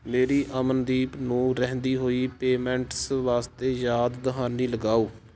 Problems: constant background noise